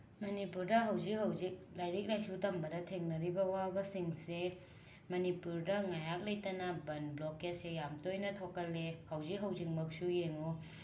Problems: background sounds at intervals